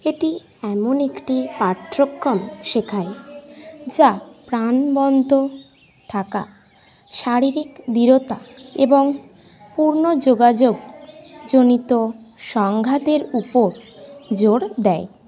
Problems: constant background noise, continuous background conversations